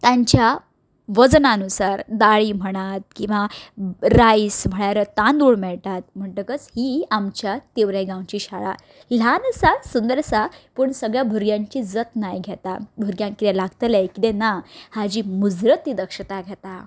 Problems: background sounds at intervals